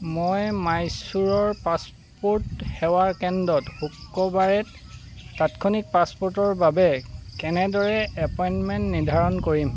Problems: constant background noise